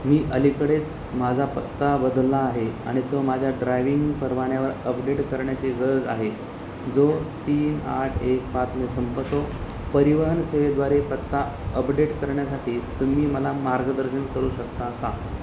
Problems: constant background noise